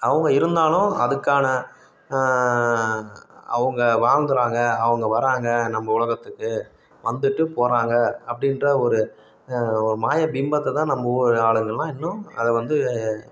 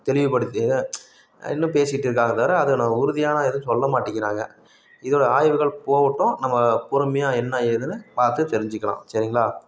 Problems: background sounds at intervals